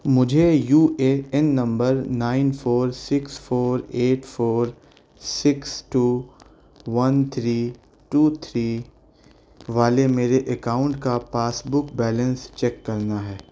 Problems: constant background noise